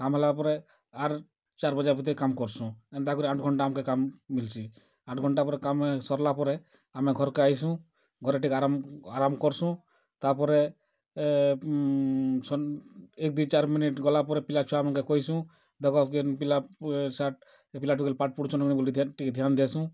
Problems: none marked